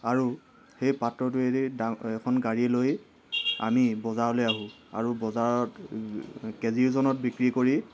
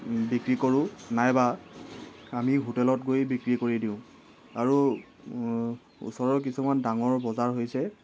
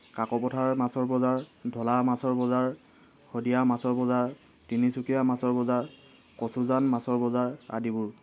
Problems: none marked